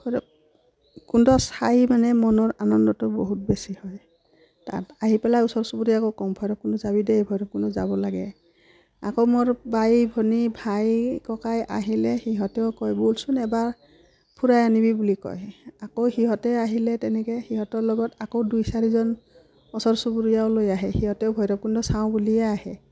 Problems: background sounds at intervals